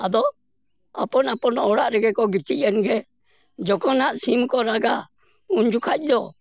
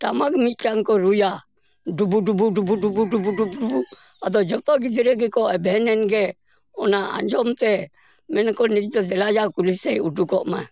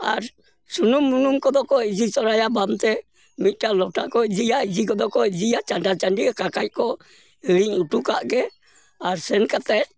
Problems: none marked